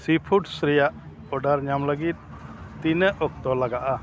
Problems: constant background noise